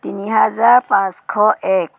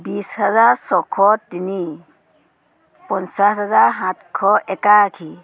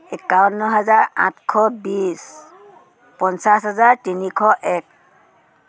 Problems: none marked